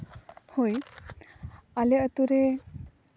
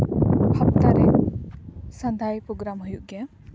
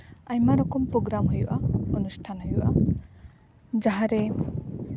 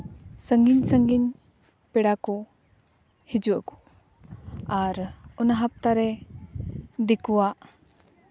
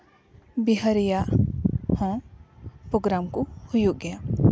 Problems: background sounds at intervals